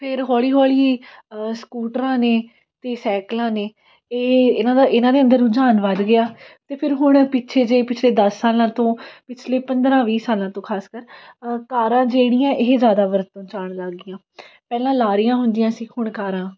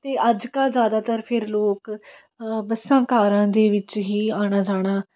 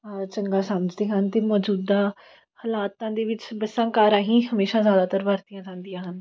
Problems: background sounds at intervals